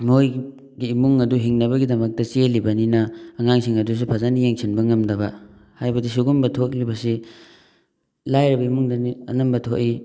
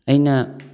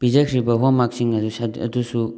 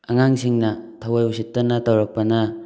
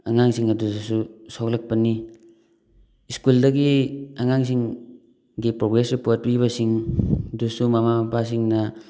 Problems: background sounds at intervals